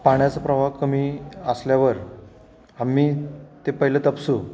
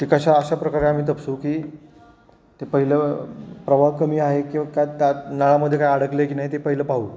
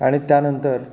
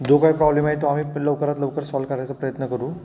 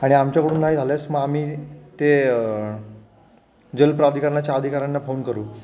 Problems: none marked